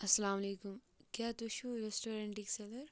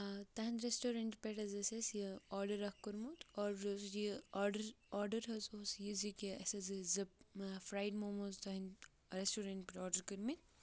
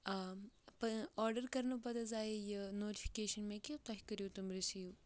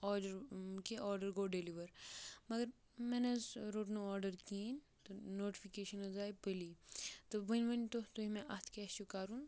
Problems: background sounds at intervals